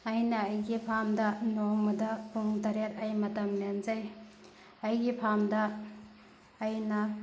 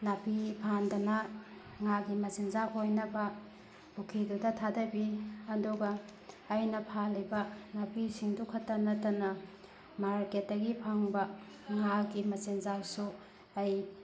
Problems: constant background noise